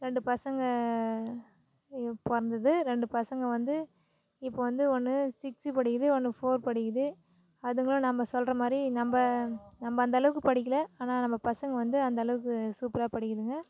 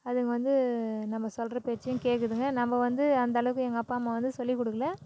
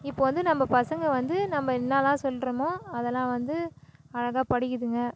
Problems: none marked